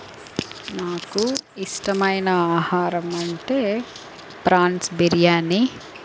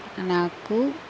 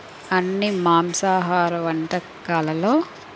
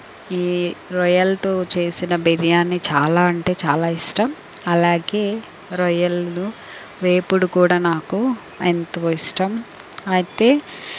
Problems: constant background noise